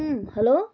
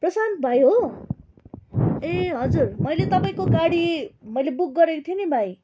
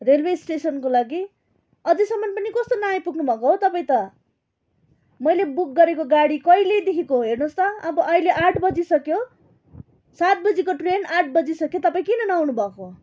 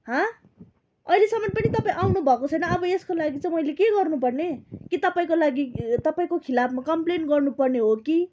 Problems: none marked